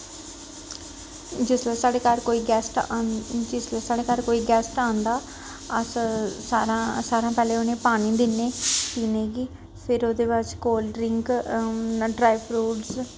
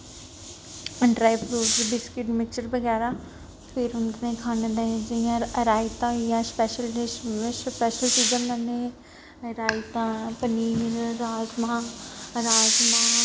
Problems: constant background noise